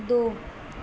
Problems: constant background noise